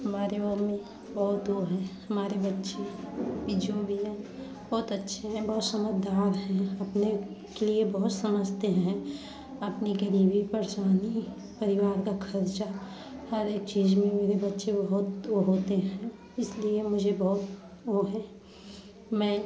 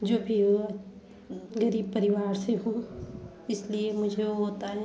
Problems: background sounds at intervals, background conversations at intervals